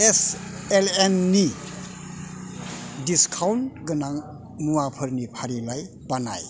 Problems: constant background noise